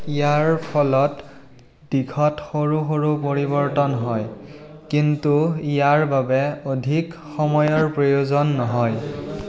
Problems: constant background noise, low volume